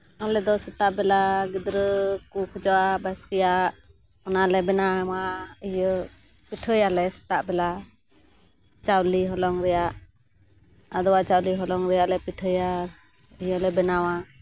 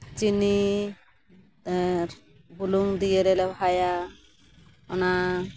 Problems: none marked